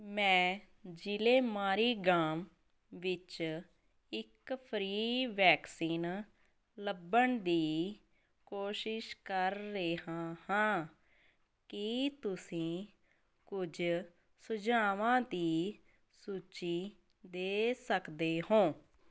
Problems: none marked